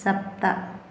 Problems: none marked